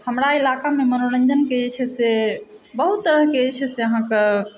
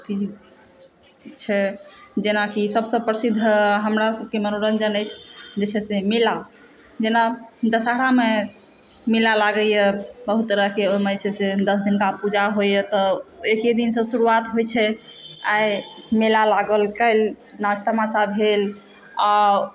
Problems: constant background noise, background conversations at intervals